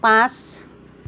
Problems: constant background noise